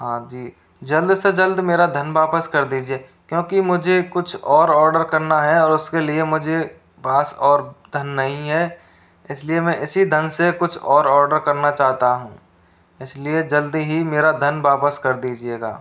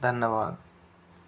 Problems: constant background noise